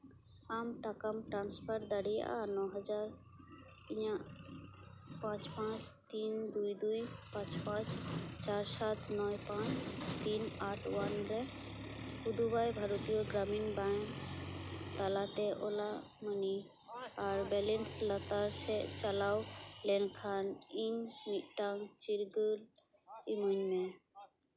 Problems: constant background noise, continuous background conversations